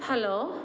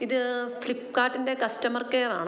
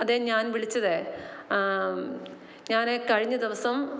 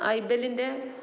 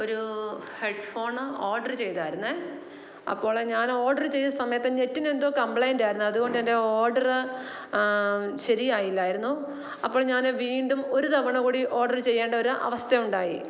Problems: none marked